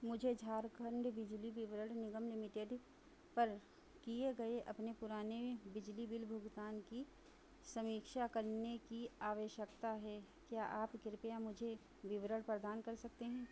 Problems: constant background noise